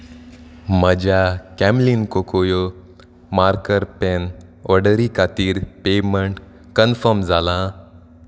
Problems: none marked